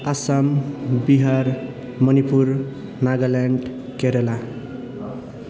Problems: constant background noise